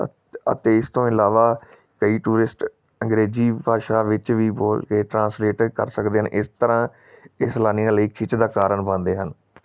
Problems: none marked